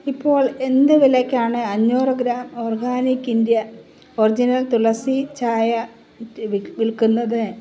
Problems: none marked